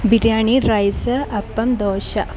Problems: constant background noise